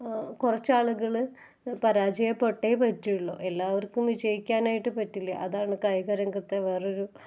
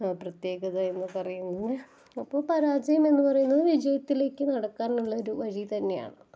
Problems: none marked